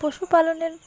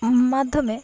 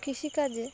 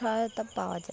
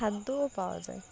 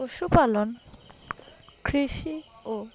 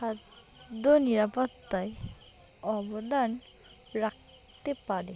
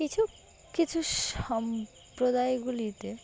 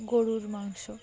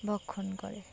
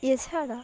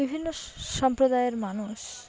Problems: background sounds at intervals, continuous background conversations